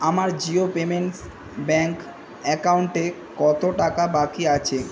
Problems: none marked